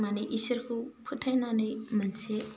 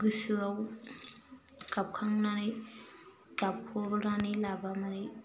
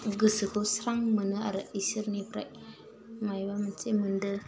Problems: low volume